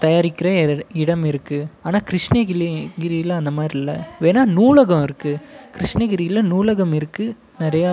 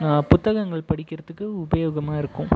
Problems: background conversations at intervals